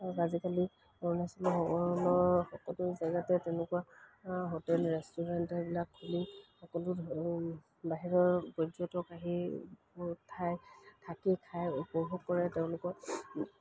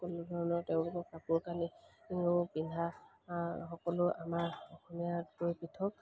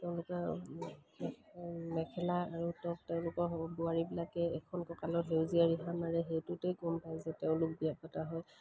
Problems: background sounds at intervals